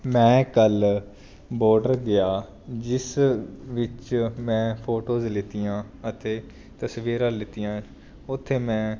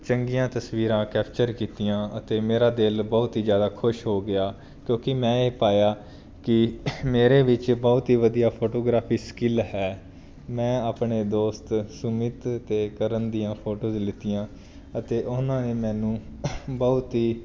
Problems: background sounds at intervals